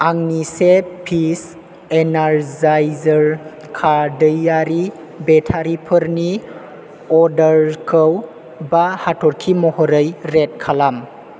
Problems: constant background noise